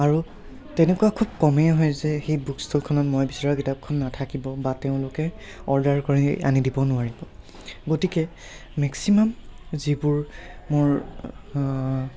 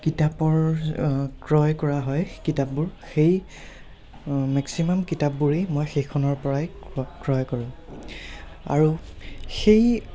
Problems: background conversations at intervals